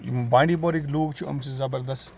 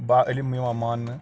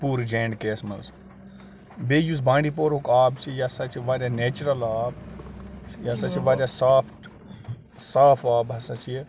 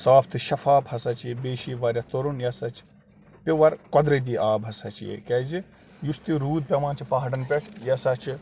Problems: none marked